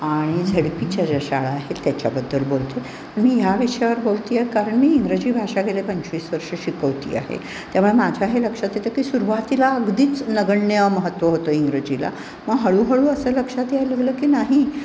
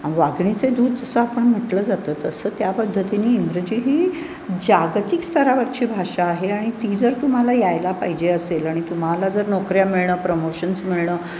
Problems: constant background noise